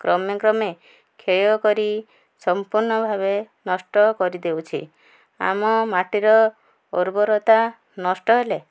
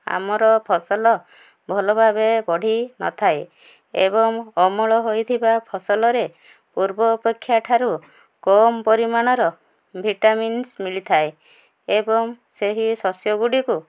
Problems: none marked